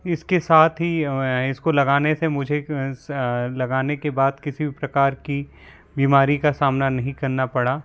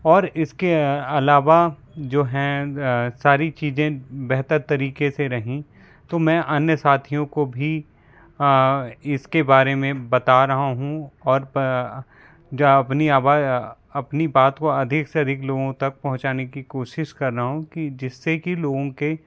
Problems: constant background noise